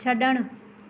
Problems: none marked